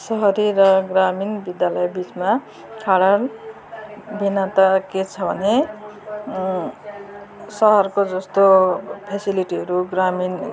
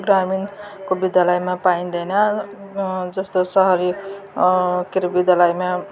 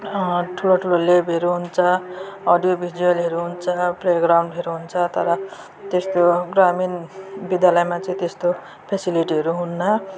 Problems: continuous background conversations